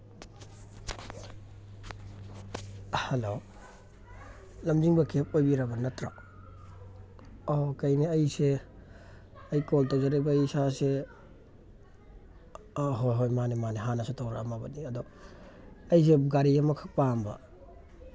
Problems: background sounds at intervals